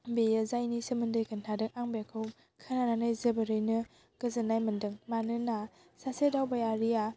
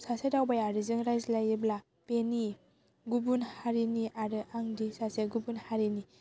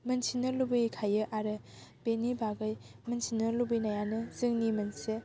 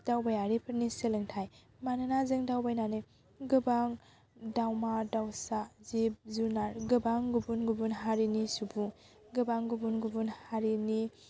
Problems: none marked